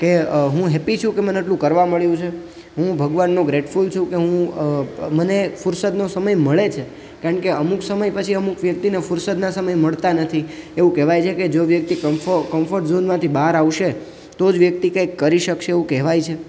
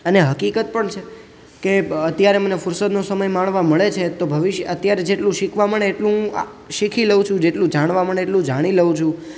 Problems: none marked